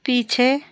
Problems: background sounds at intervals